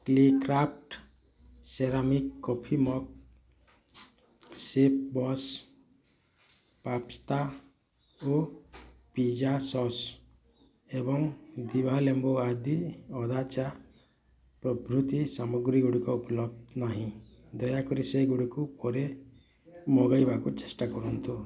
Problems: constant background noise, continuous background conversations, echo